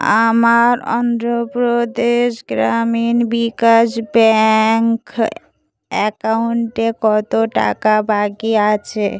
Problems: continuous background conversations